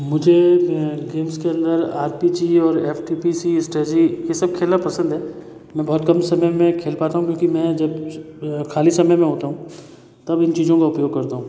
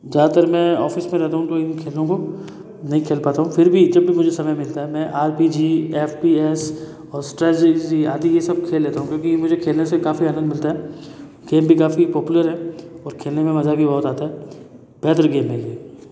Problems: echo